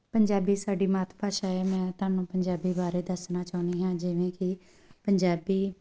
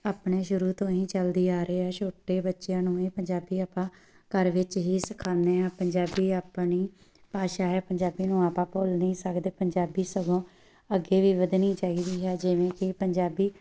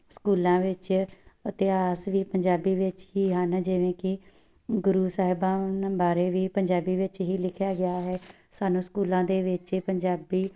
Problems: none marked